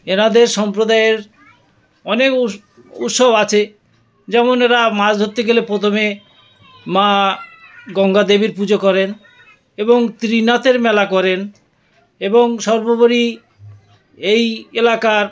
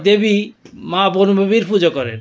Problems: continuous background conversations